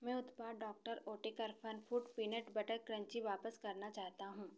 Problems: constant background noise, echo